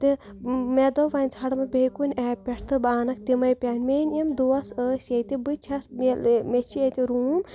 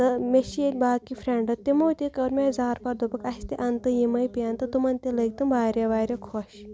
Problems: background sounds at intervals